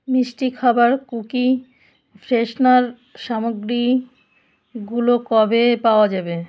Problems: constant background noise